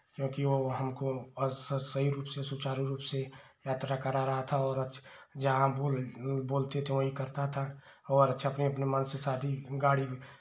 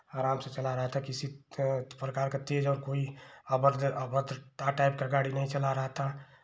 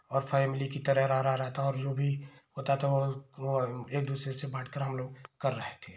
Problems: low volume